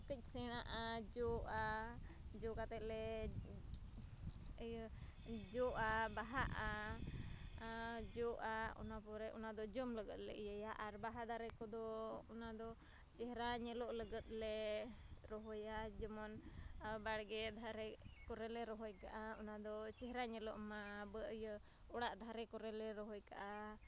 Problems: none marked